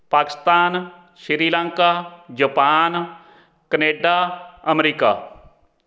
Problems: none marked